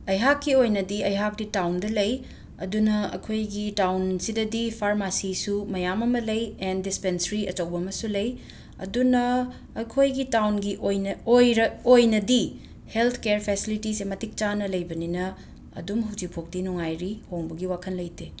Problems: background sounds at intervals